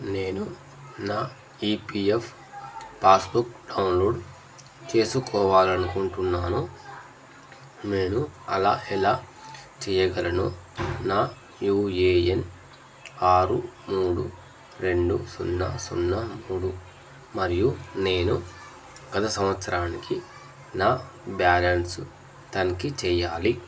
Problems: none marked